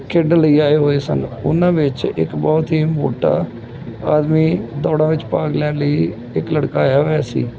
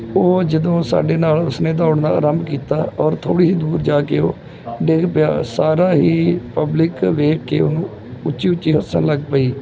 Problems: background sounds at intervals, background conversations at intervals